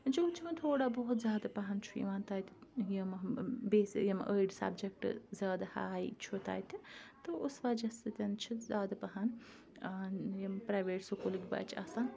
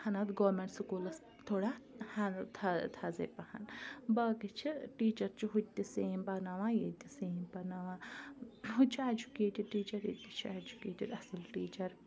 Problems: background sounds at intervals, background conversations at intervals